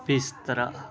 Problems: background conversations at intervals